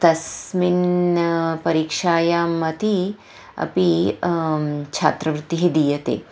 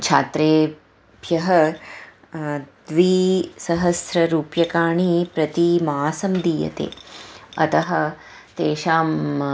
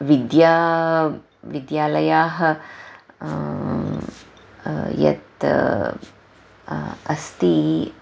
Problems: none marked